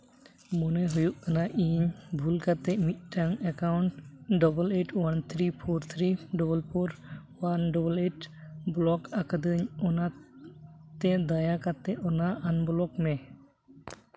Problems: none marked